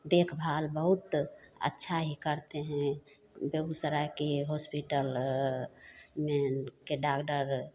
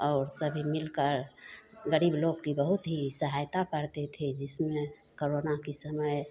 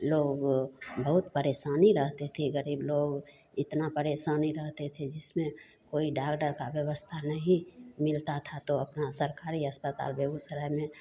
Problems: constant background noise